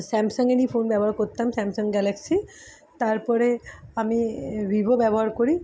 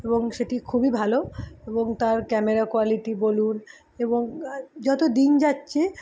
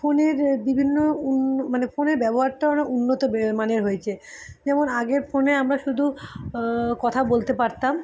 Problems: none marked